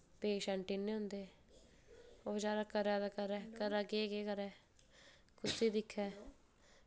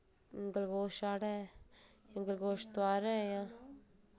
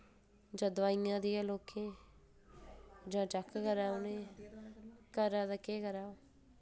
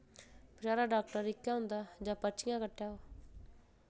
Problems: background sounds at intervals, low volume